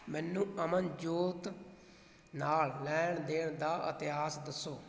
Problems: none marked